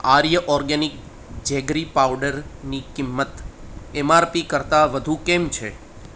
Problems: none marked